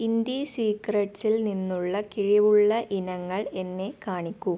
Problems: none marked